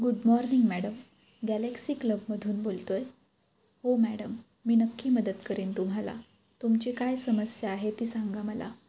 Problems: constant background noise